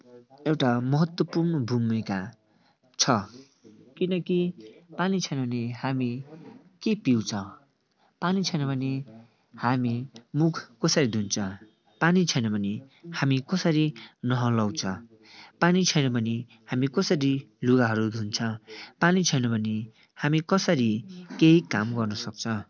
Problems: none marked